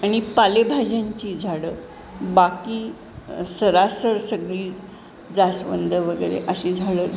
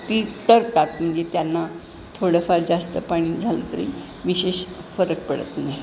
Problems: none marked